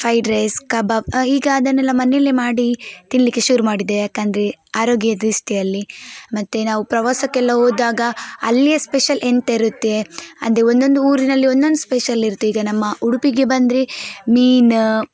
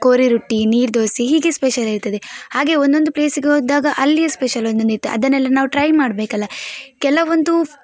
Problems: background sounds at intervals